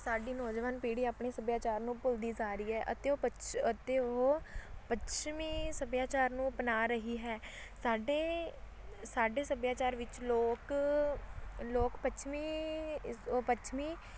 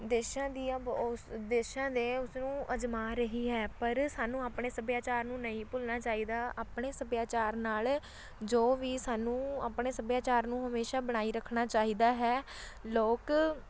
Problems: constant background noise, background conversations at intervals